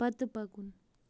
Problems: none marked